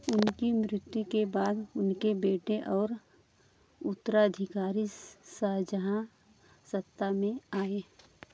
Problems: none marked